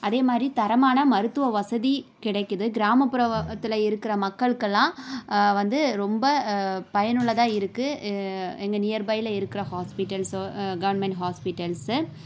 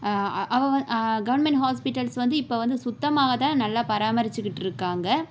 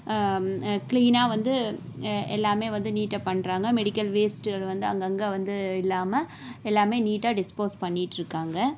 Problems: none marked